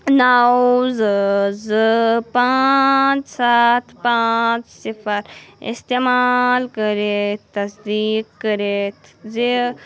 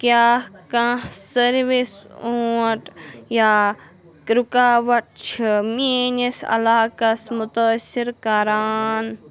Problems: none marked